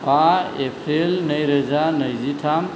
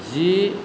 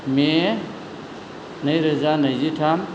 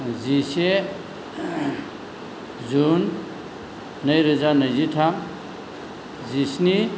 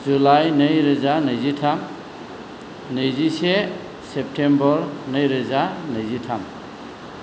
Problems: none marked